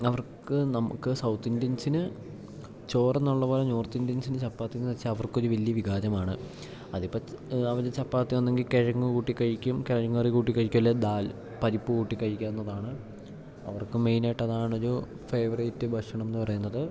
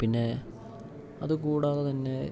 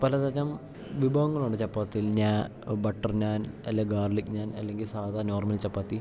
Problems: background sounds at intervals